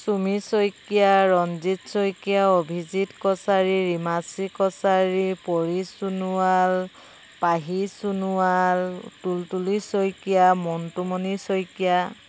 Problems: constant background noise